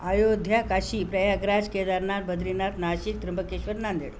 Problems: none marked